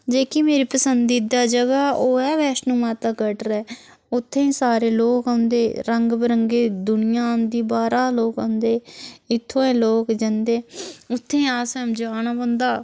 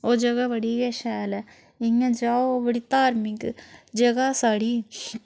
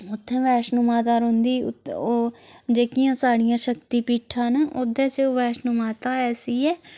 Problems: constant background noise